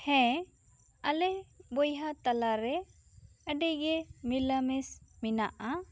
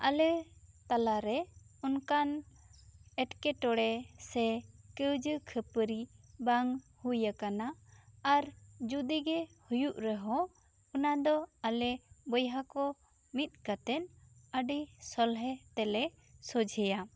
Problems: none marked